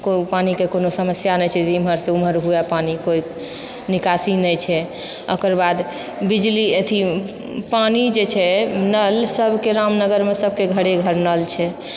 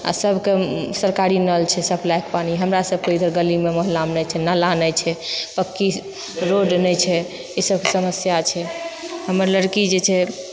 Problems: none marked